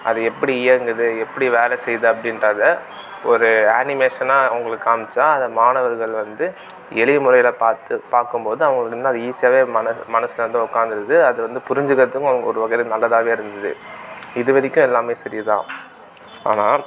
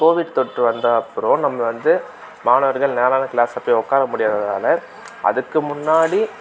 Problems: constant background noise